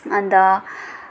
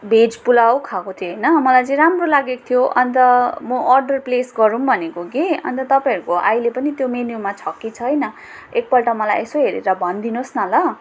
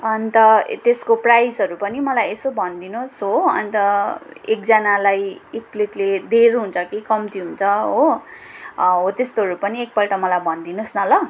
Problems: background sounds at intervals